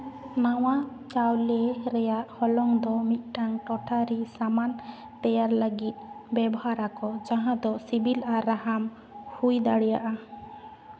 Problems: none marked